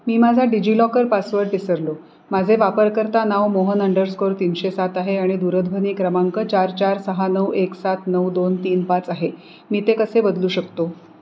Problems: background sounds at intervals